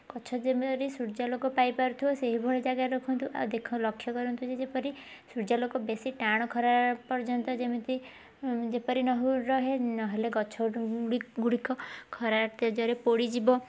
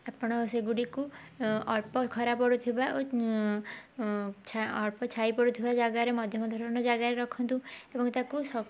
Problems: background conversations at intervals